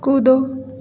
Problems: constant background noise, echo